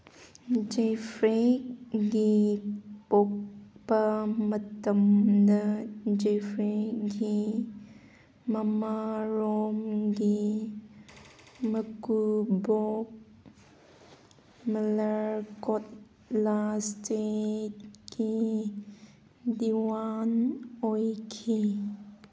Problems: background sounds at intervals